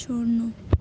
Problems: low volume